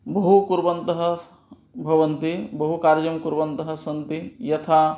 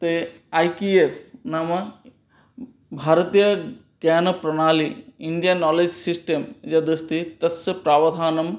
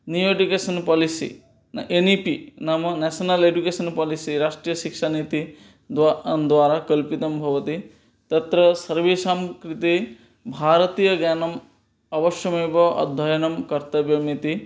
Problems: none marked